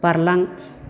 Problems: constant background noise